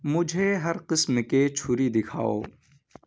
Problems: background sounds at intervals